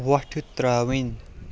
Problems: constant background noise